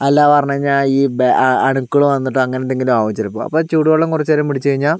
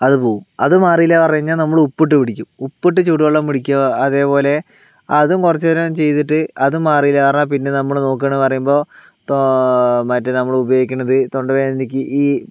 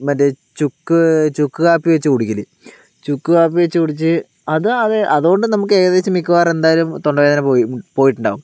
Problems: none marked